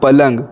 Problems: constant background noise